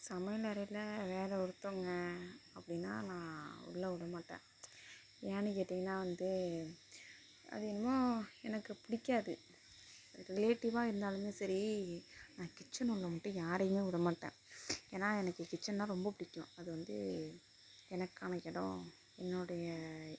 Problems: constant background noise, low volume